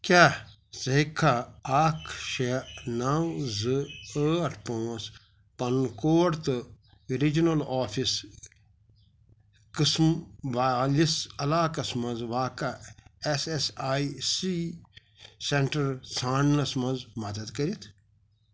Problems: none marked